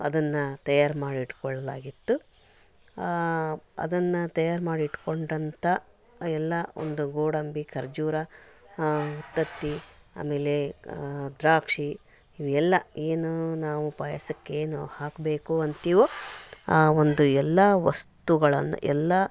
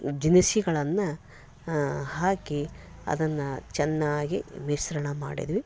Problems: none marked